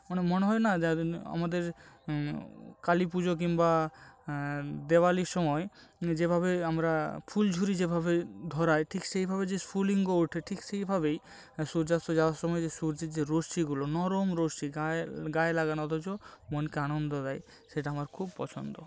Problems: background sounds at intervals